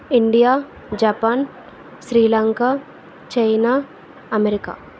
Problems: constant background noise